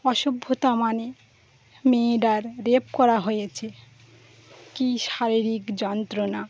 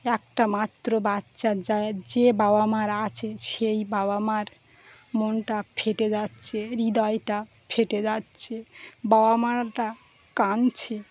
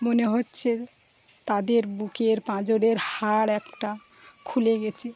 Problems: constant background noise, continuous background conversations